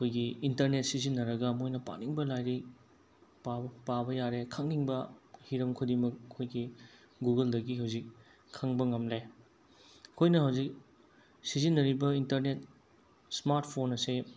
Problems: constant background noise